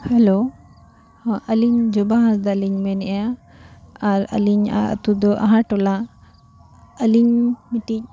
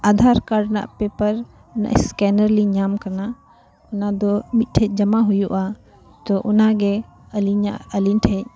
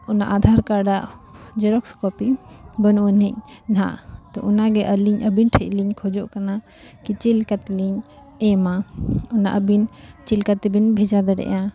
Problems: constant background noise, continuous background conversations